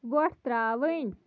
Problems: background sounds at intervals